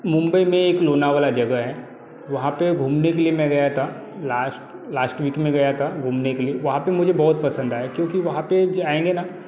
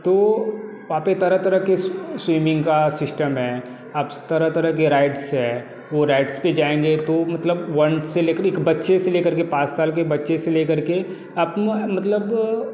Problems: none marked